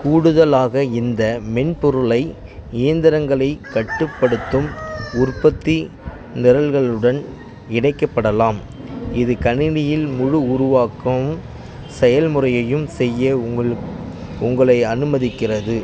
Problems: constant background noise